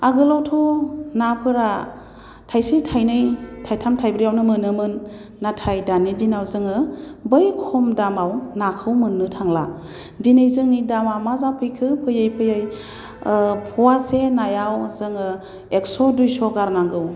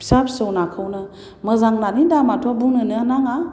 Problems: constant background noise